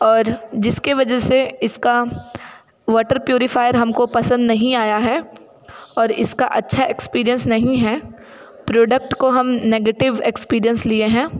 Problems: constant background noise, continuous background conversations